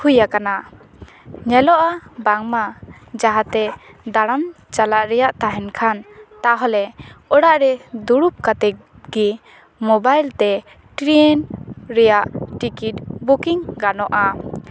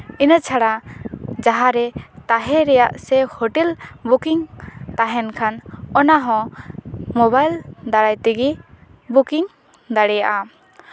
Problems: background sounds at intervals